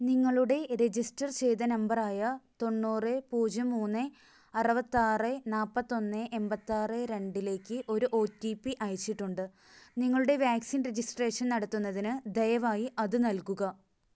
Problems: none marked